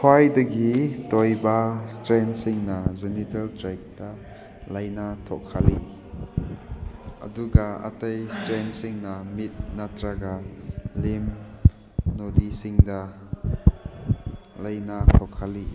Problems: background sounds at intervals